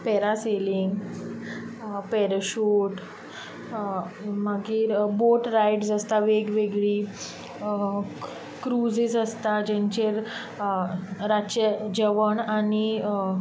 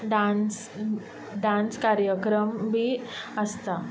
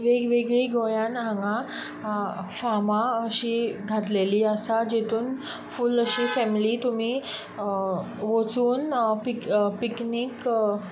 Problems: constant background noise